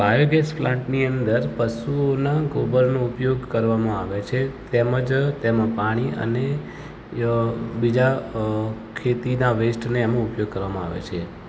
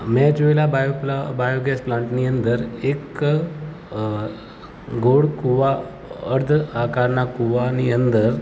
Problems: constant background noise